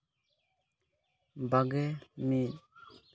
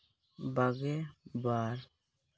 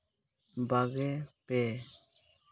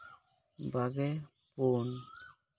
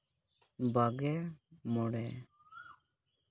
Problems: none marked